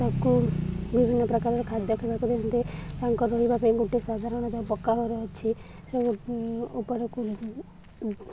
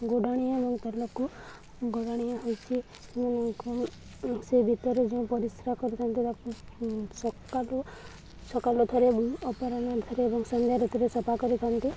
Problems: constant background noise, continuous background conversations